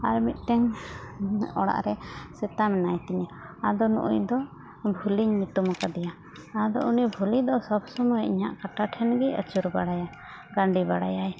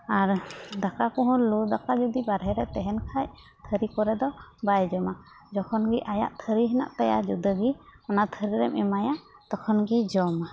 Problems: constant background noise